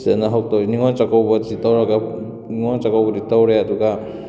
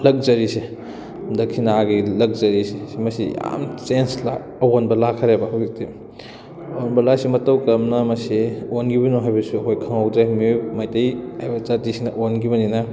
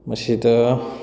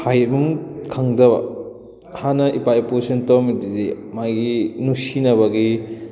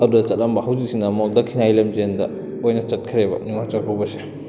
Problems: continuous background conversations